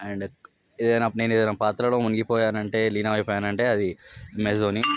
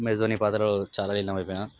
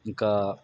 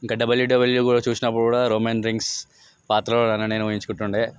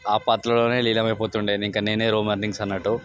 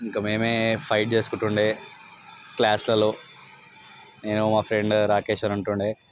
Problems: background sounds at intervals